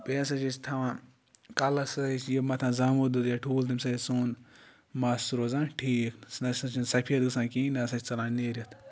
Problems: none marked